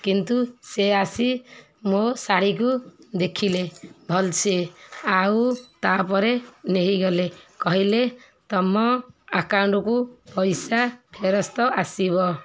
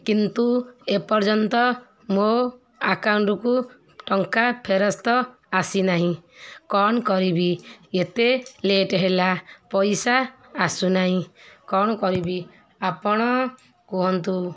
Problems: constant background noise, continuous background conversations